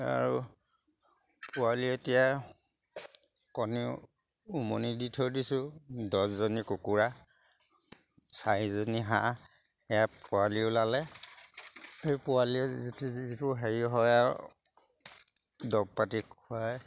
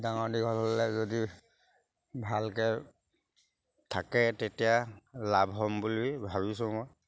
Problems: background sounds at intervals